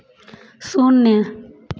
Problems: none marked